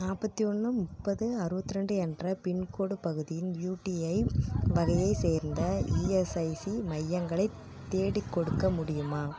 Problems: background conversations at intervals